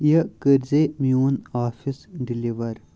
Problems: constant background noise